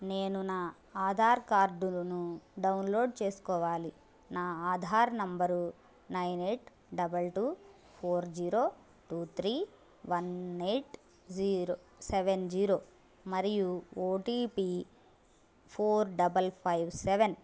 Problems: background sounds at intervals